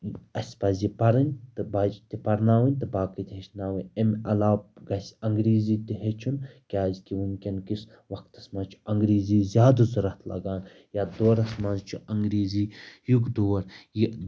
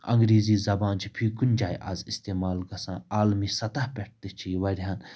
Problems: background sounds at intervals